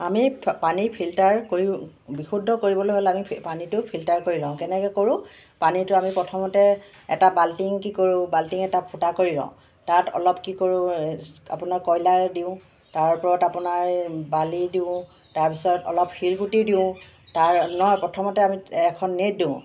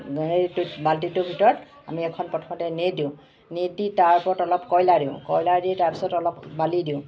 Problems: none marked